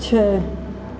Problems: constant background noise, echo